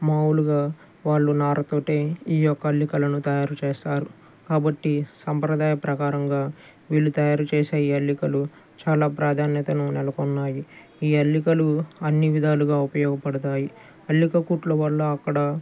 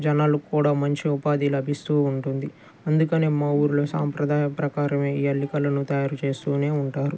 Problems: none marked